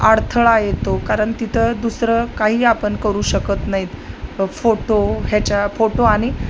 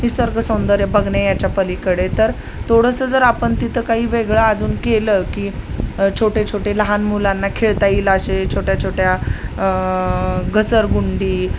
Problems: none marked